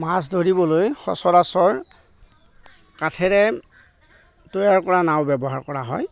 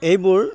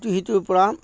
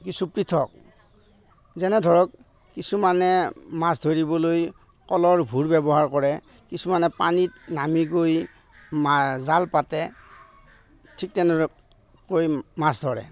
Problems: none marked